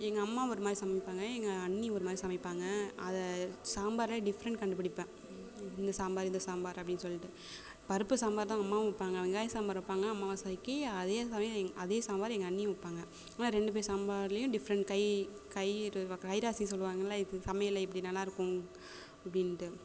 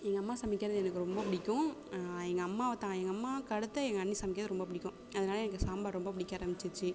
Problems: constant background noise, background conversations at intervals